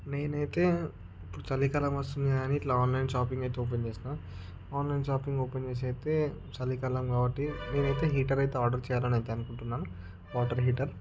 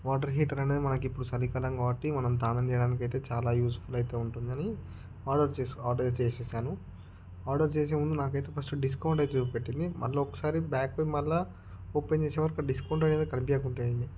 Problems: background sounds at intervals